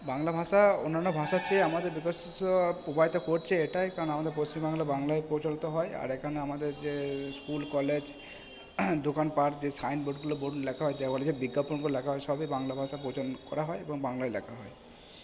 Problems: background sounds at intervals